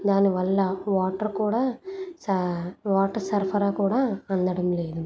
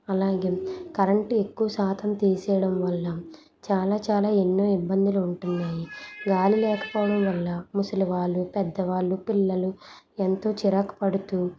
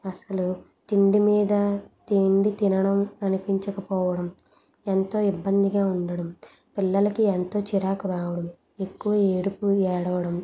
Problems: background conversations at intervals